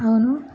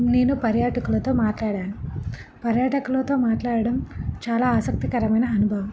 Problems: background sounds at intervals